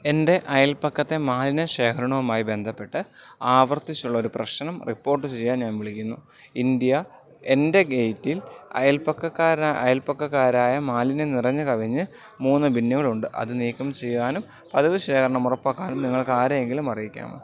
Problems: background sounds at intervals